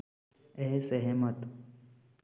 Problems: constant background noise